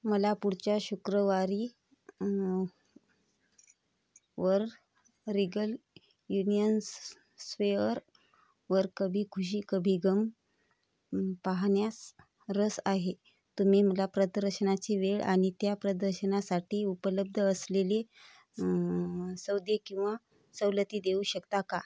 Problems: none marked